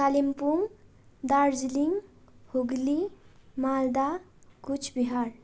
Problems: constant background noise